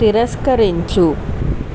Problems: constant background noise